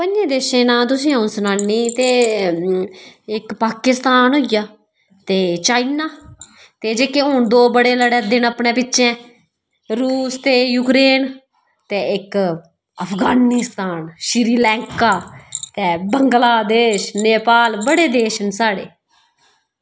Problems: background sounds at intervals